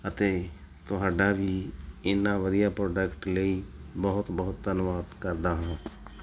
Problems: none marked